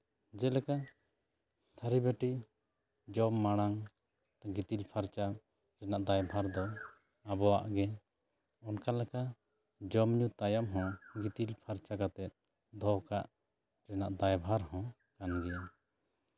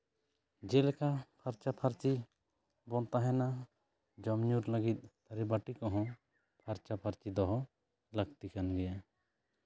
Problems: none marked